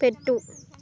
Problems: continuous background conversations